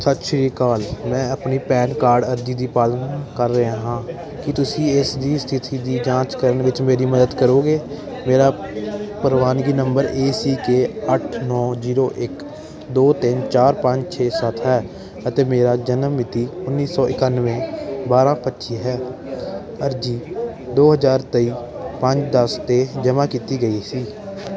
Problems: continuous background conversations